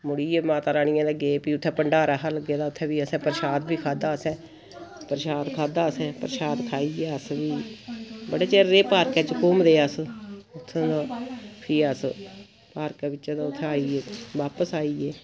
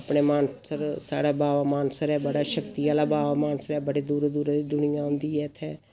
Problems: none marked